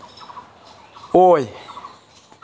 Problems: background sounds at intervals